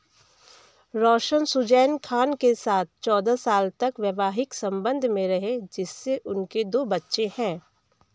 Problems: background sounds at intervals, background conversations at intervals